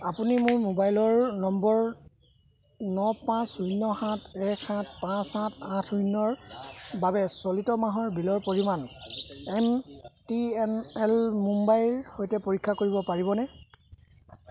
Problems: none marked